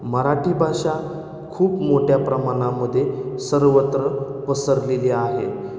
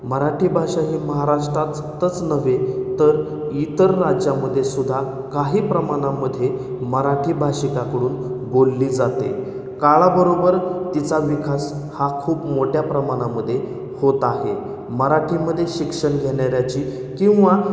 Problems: none marked